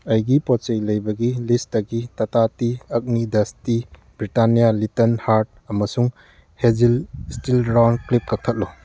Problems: background sounds at intervals